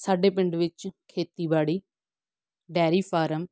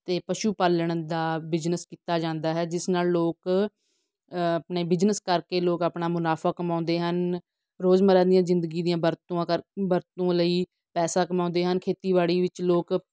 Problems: none marked